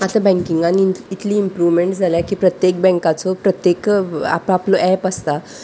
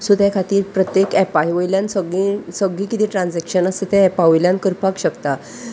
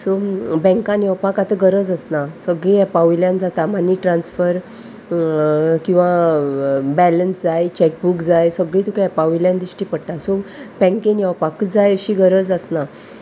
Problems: none marked